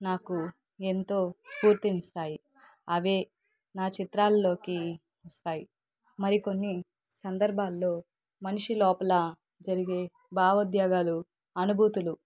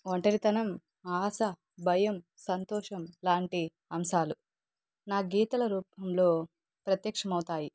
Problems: background conversations at intervals